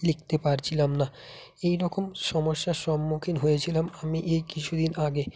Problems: constant background noise